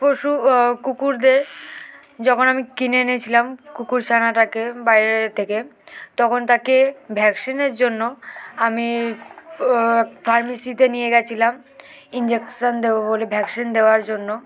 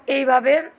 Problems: none marked